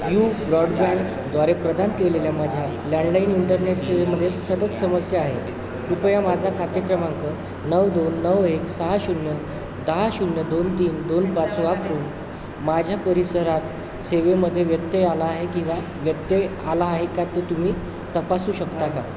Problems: constant background noise, continuous background conversations